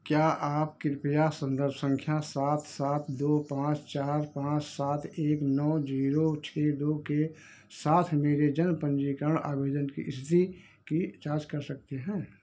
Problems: echo